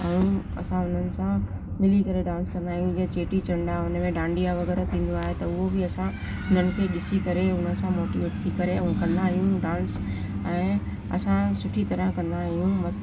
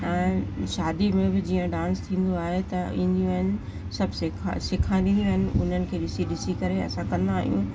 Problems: constant background noise